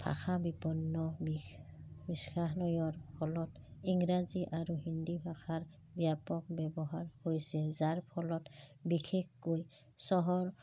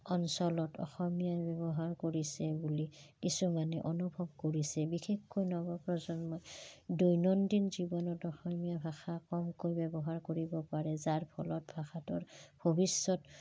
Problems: background sounds at intervals